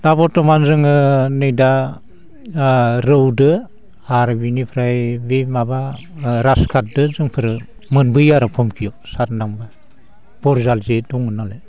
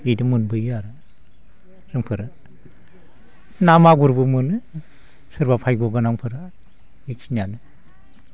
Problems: constant background noise